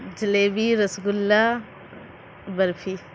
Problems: constant background noise